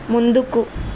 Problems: constant background noise